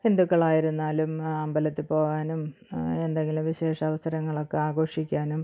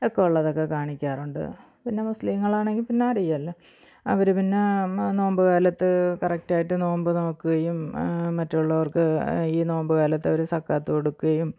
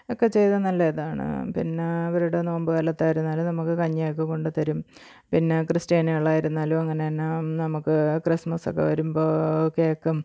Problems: low volume